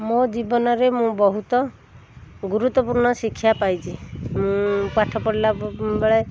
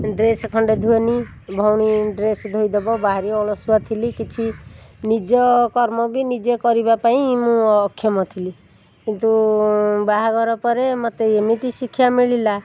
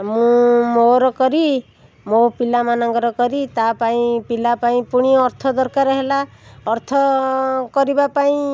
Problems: constant background noise